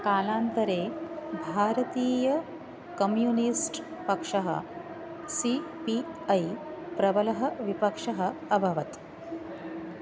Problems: constant background noise